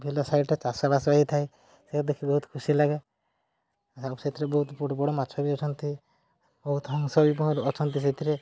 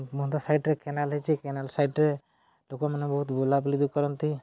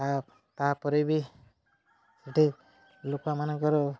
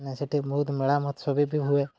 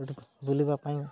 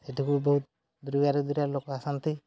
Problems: low volume